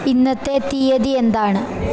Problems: constant background noise